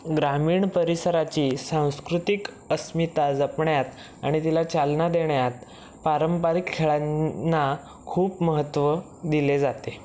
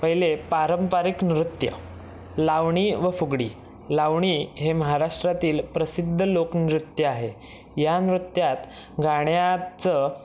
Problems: background sounds at intervals